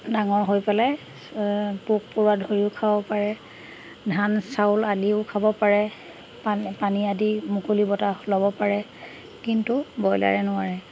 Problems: constant background noise, background conversations at intervals